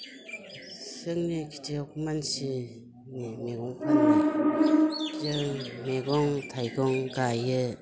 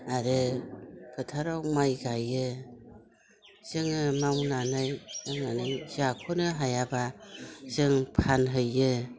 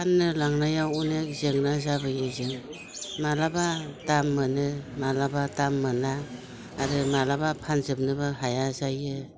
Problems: constant background noise